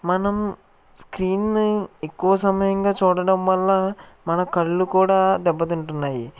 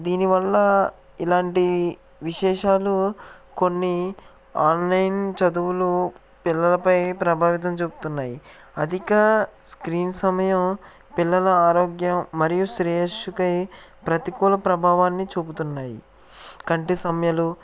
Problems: none marked